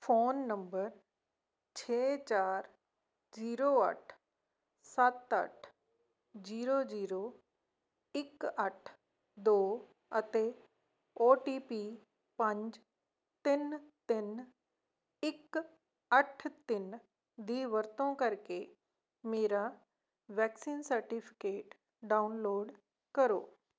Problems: none marked